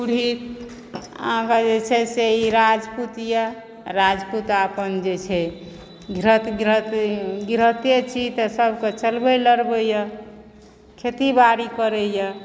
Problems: background sounds at intervals